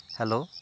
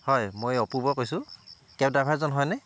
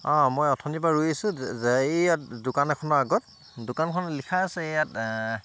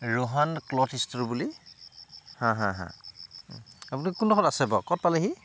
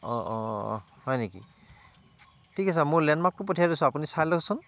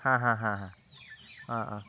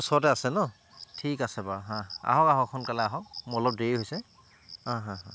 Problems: constant background noise